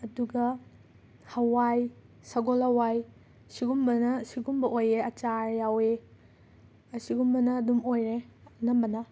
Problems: background sounds at intervals